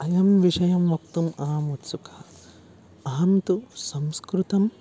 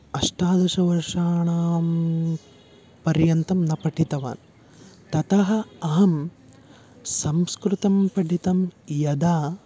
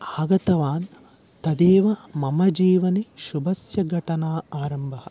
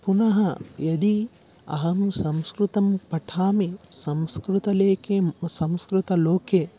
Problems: constant background noise